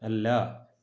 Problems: low volume